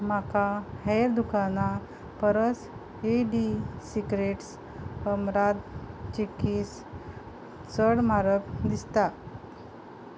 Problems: background sounds at intervals